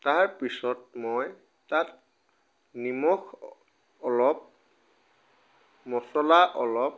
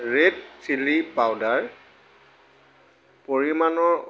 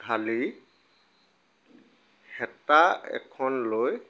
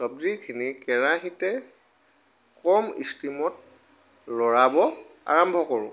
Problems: background sounds at intervals